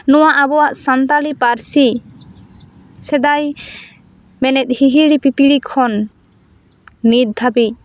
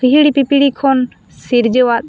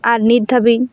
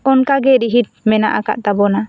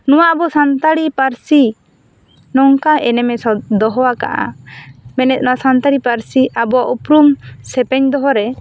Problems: none marked